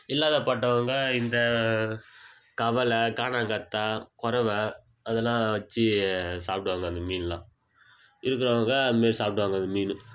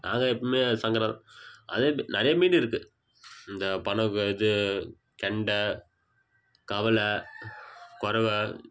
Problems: background sounds at intervals